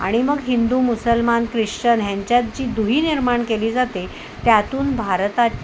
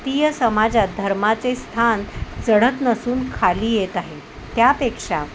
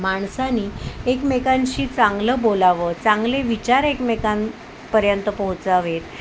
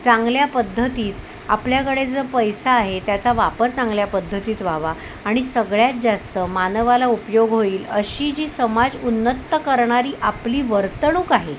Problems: constant background noise